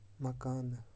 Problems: low volume